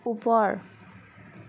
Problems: constant background noise